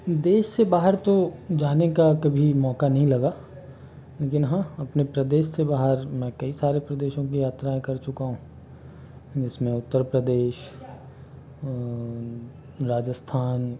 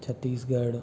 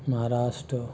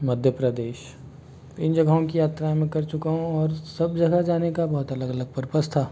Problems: constant background noise